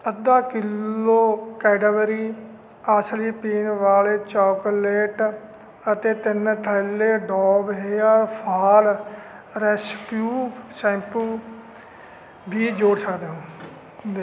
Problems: constant background noise